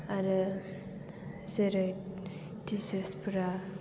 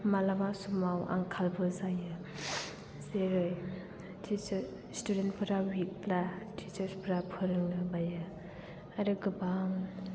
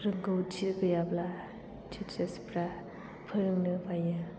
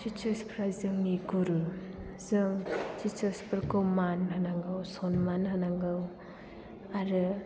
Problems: background sounds at intervals